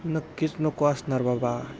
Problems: constant background noise